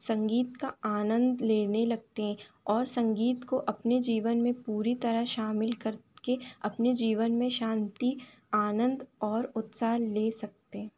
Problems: constant background noise